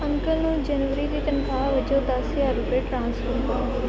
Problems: constant background noise